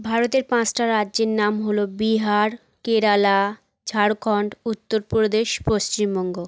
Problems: none marked